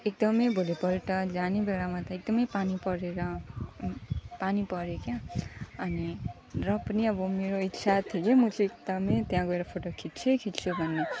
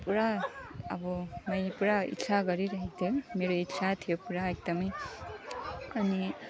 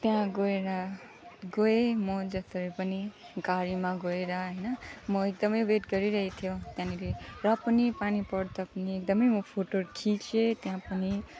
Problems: background sounds at intervals